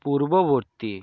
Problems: none marked